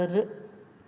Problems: echo